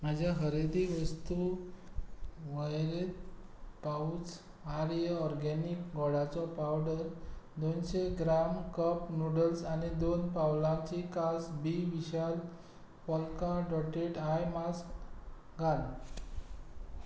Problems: none marked